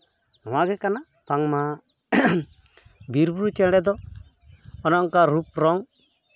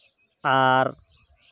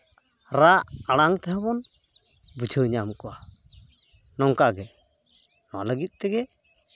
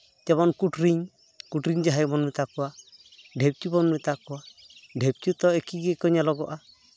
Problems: background sounds at intervals